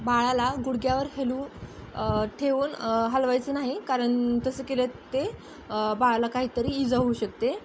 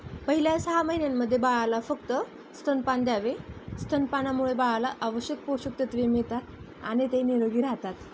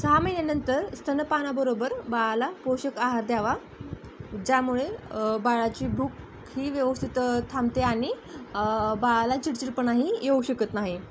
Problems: constant background noise